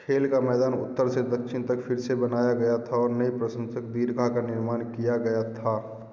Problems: constant background noise, continuous background conversations, echo